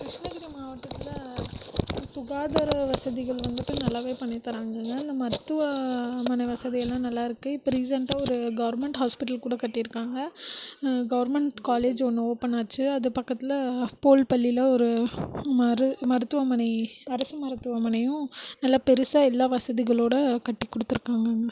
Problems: background sounds at intervals, low volume